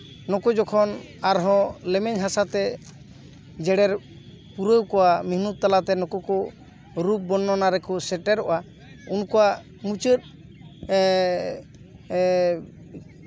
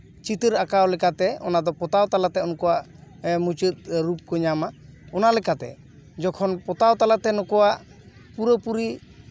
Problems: background sounds at intervals, background conversations at intervals